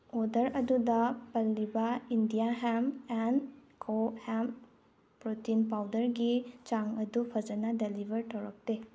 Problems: none marked